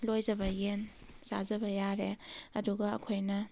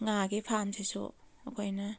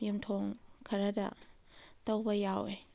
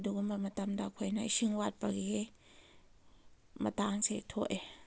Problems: none marked